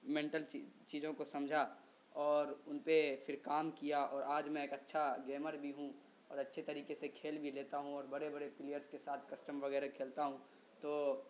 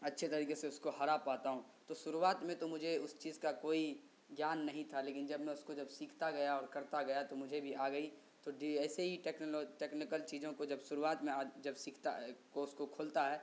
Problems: constant background noise